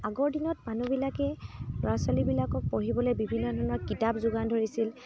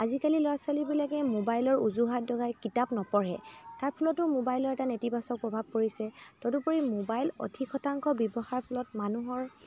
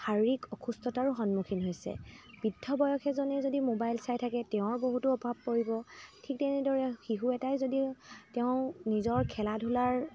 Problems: constant background noise, continuous background conversations